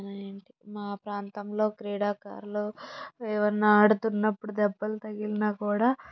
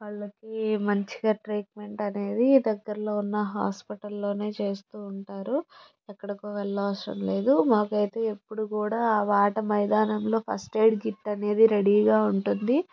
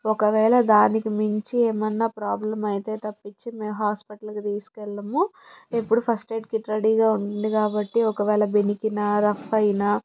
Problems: background sounds at intervals